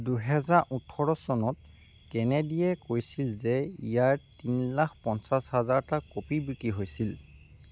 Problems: constant background noise